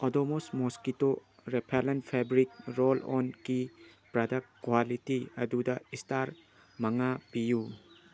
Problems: constant background noise